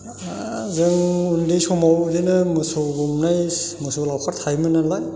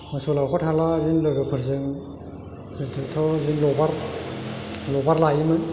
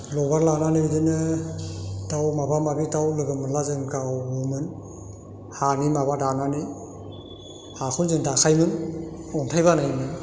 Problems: constant background noise